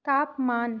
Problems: background sounds at intervals, echo